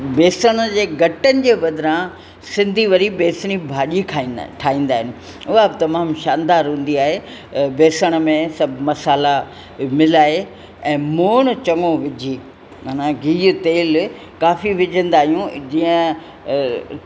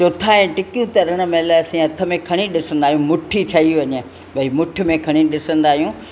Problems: constant background noise, echo